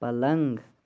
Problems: background sounds at intervals